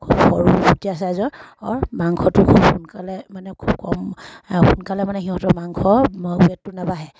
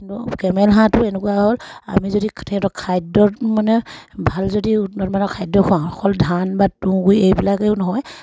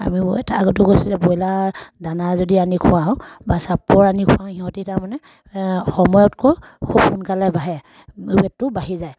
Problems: none marked